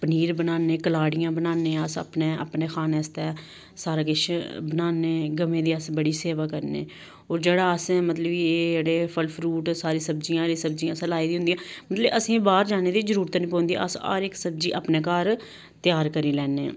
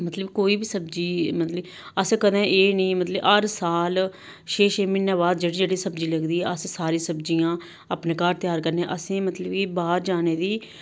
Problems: none marked